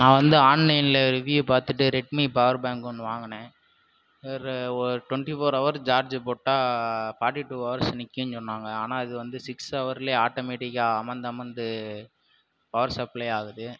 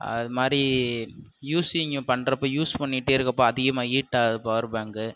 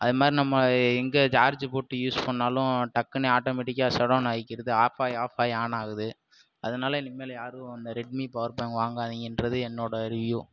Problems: background sounds at intervals